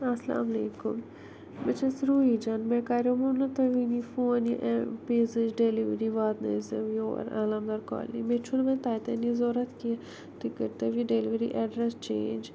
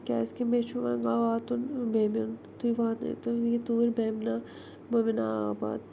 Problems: low volume